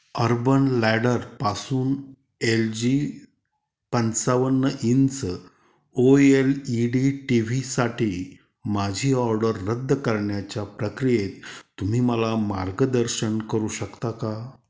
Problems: constant background noise